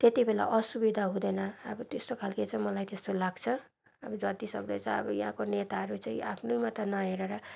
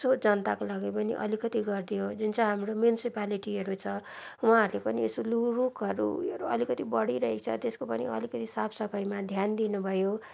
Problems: background sounds at intervals